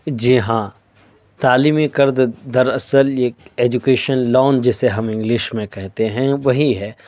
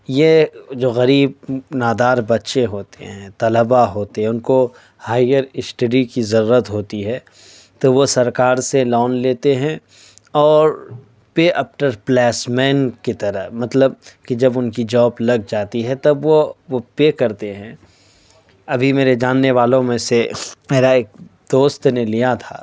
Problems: none marked